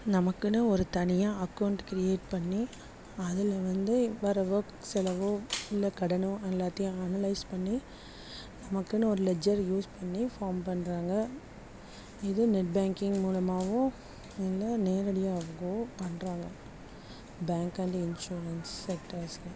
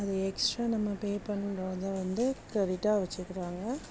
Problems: background sounds at intervals, low volume